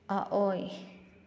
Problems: low volume